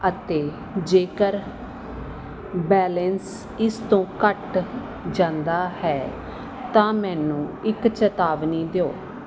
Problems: background sounds at intervals